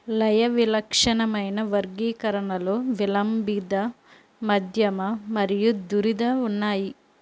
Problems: constant background noise